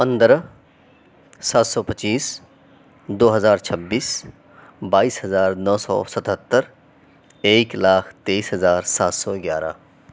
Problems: none marked